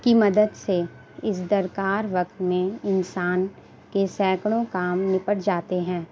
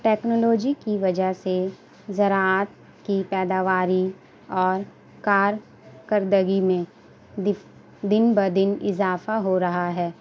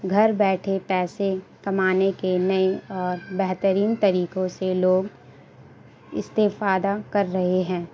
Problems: constant background noise